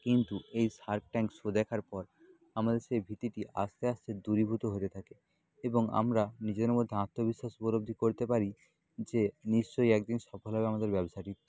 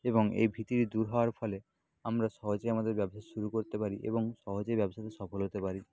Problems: background sounds at intervals, low volume